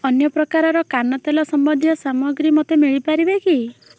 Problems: constant background noise